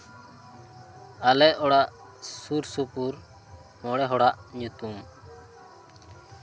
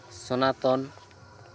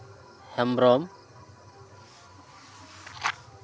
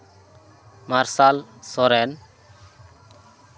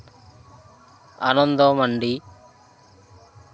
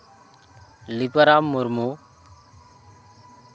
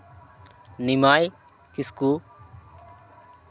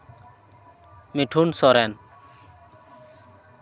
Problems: constant background noise